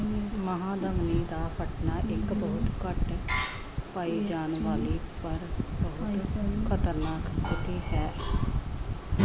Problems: background sounds at intervals